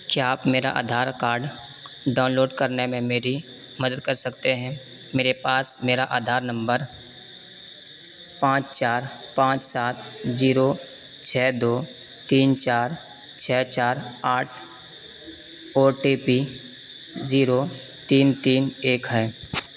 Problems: constant background noise